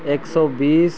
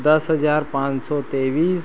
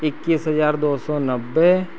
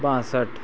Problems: none marked